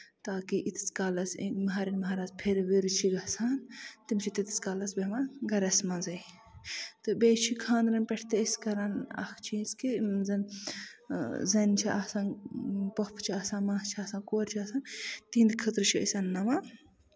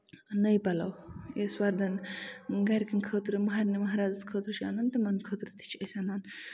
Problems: background sounds at intervals